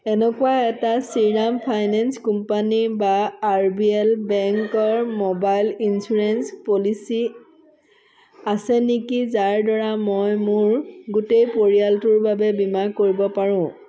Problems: none marked